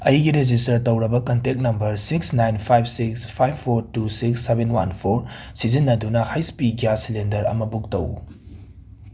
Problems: none marked